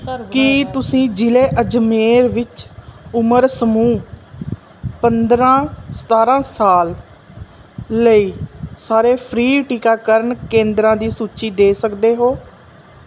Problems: background sounds at intervals